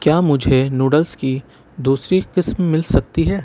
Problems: constant background noise